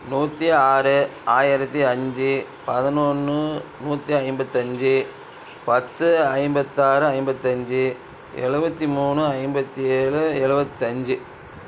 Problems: none marked